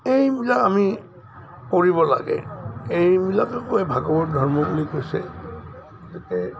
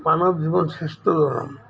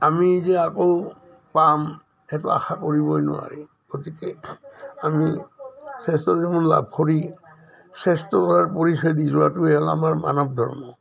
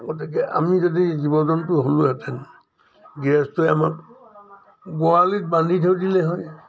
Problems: none marked